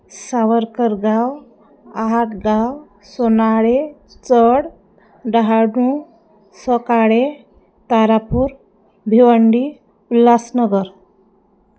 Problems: none marked